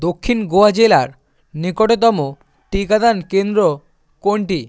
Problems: none marked